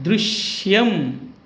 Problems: constant background noise